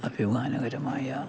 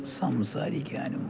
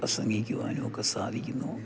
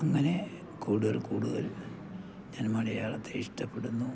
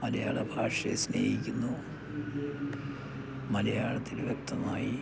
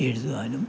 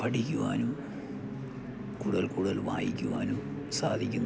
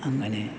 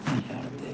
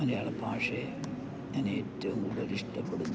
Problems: background sounds at intervals, low volume